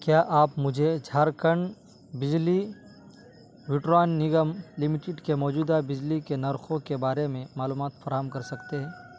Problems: none marked